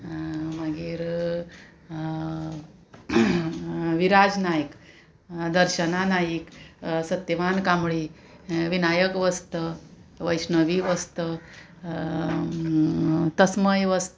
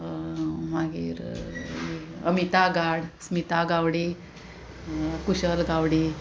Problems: constant background noise, continuous background conversations